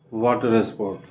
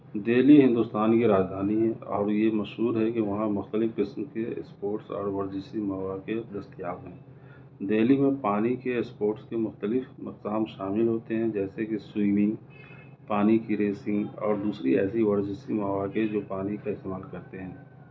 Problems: none marked